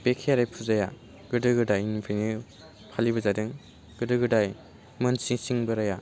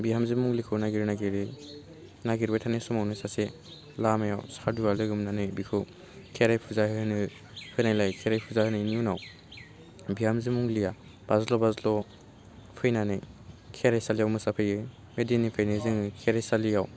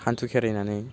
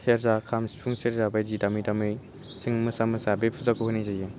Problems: low volume